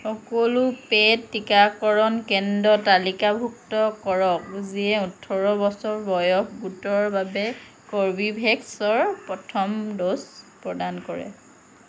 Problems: constant background noise